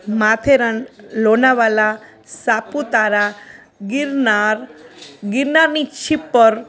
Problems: constant background noise